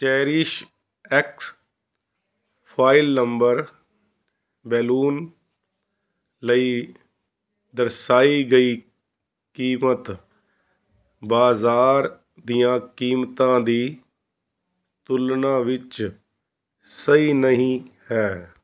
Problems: background sounds at intervals